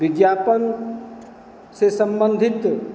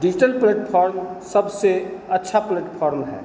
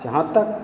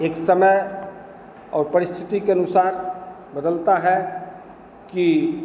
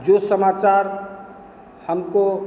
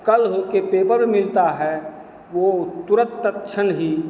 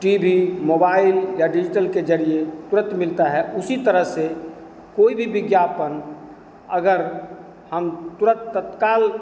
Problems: constant background noise